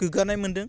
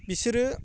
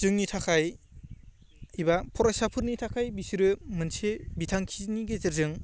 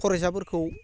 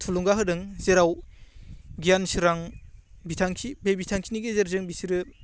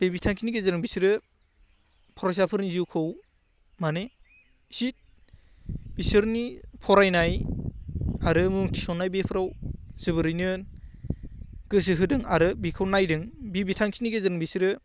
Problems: none marked